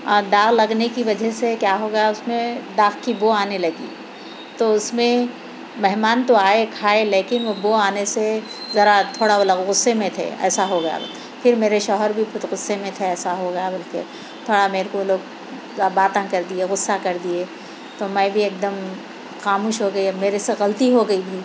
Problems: constant background noise